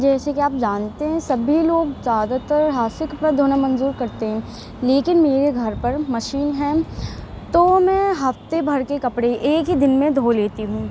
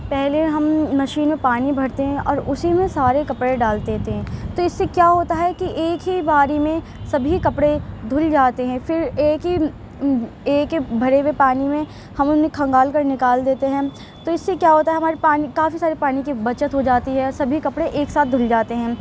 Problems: constant background noise